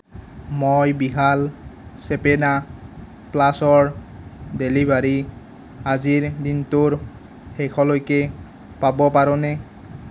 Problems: none marked